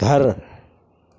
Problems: none marked